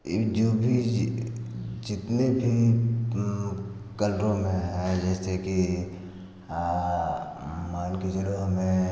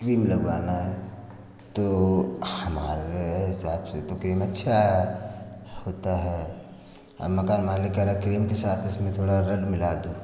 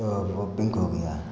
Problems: constant background noise